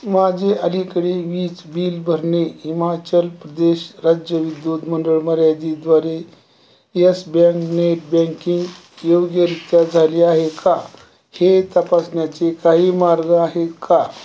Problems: none marked